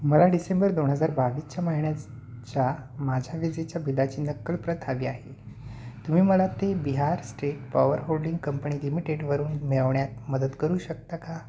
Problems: none marked